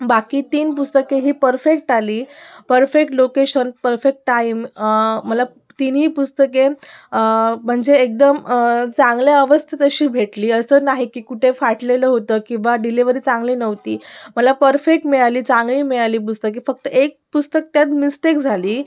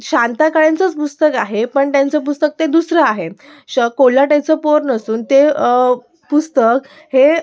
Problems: background sounds at intervals, continuous background conversations